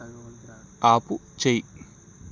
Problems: background conversations at intervals